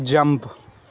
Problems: none marked